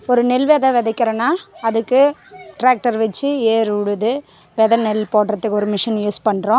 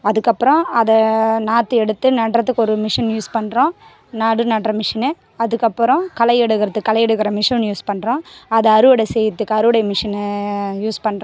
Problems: background conversations at intervals